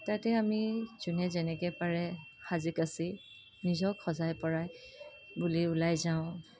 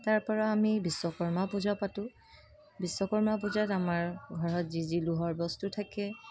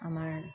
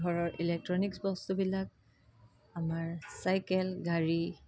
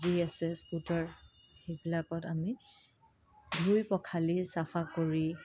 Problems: constant background noise